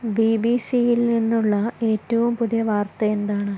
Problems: none marked